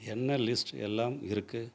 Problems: none marked